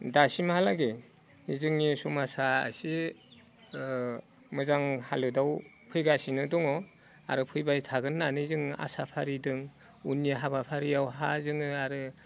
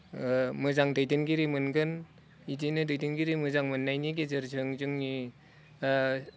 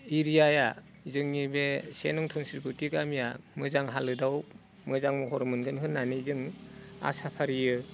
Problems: none marked